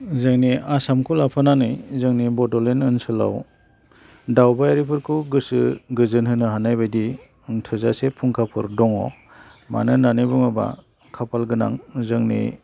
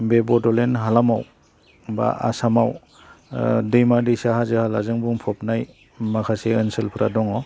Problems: none marked